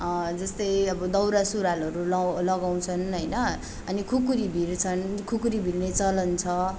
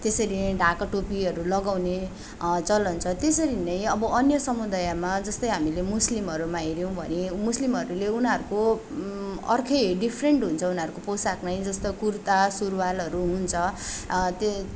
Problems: background sounds at intervals